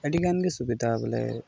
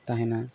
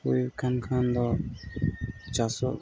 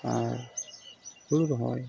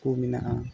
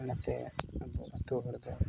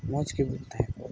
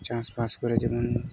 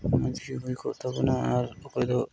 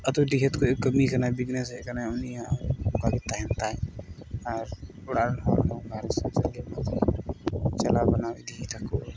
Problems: background sounds at intervals